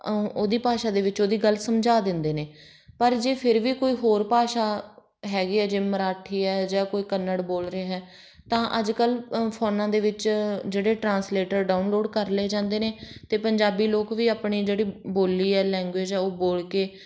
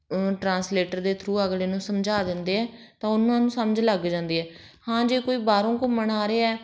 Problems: none marked